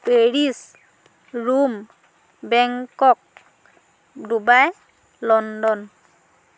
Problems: constant background noise